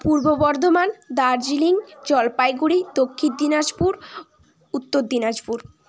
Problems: none marked